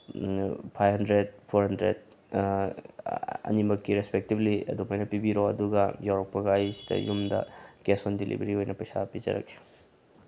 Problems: background sounds at intervals, low volume